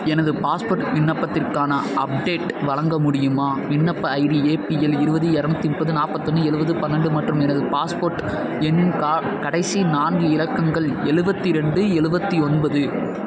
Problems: constant background noise